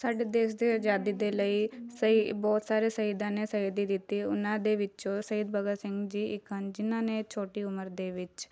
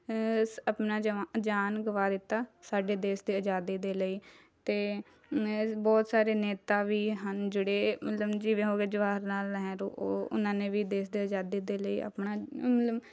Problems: background sounds at intervals, background conversations at intervals